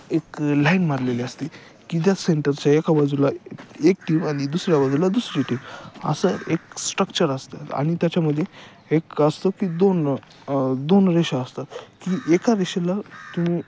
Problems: none marked